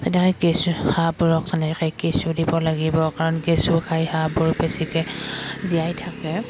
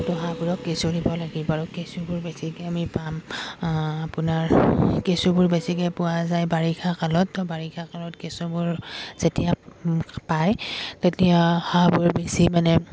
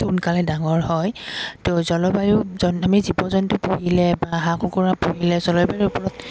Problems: background sounds at intervals